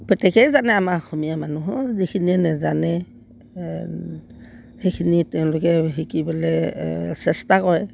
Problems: background sounds at intervals